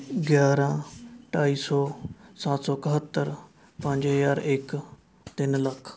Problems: background conversations at intervals